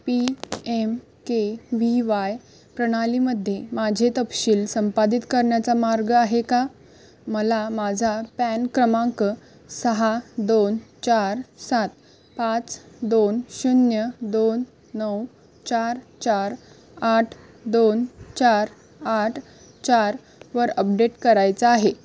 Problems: background sounds at intervals